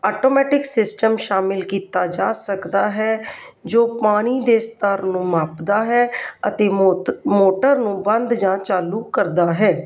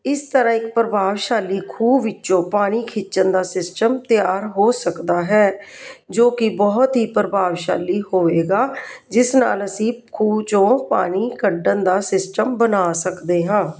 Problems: none marked